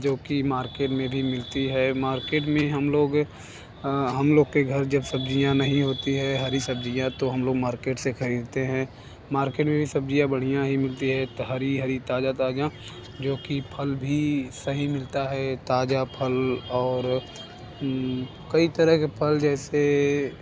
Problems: none marked